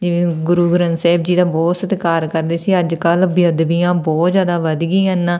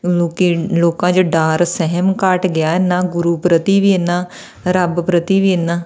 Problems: none marked